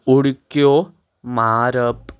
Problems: none marked